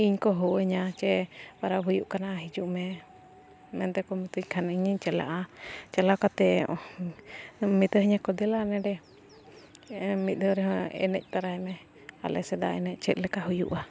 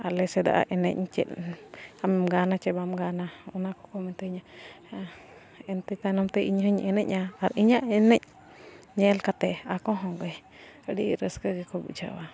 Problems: continuous background conversations